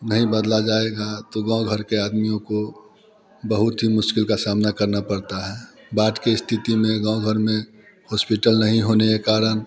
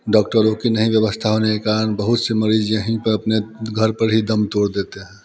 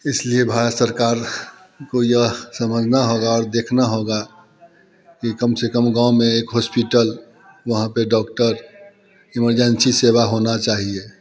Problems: background sounds at intervals, background conversations at intervals